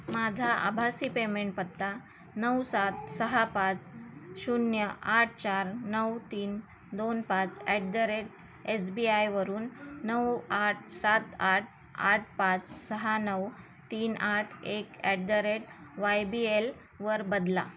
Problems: none marked